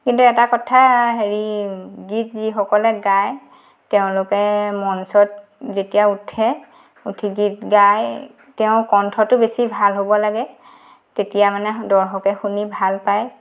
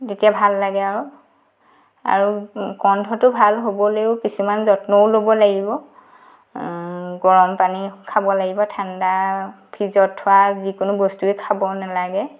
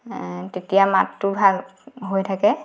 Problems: background sounds at intervals